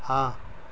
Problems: constant background noise